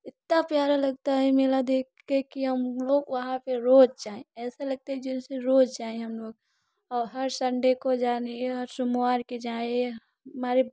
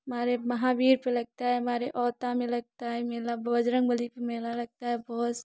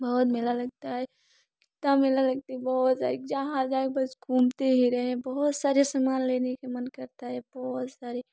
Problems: background sounds at intervals